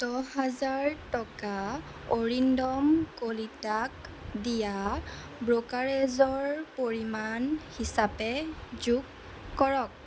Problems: constant background noise